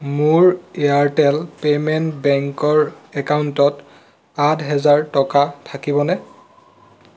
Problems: none marked